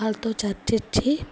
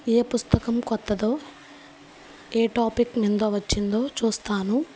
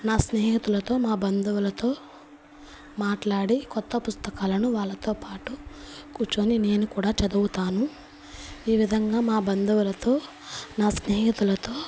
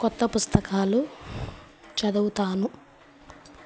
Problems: constant background noise